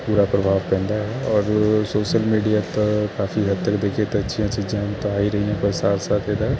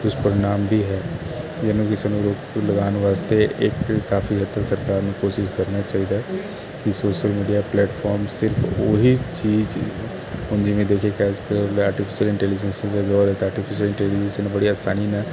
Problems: none marked